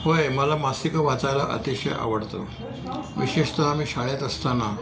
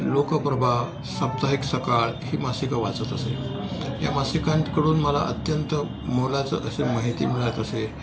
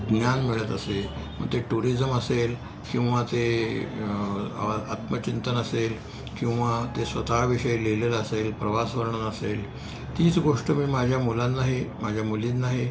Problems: none marked